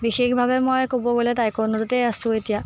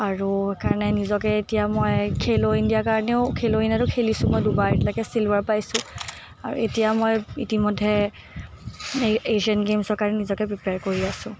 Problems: none marked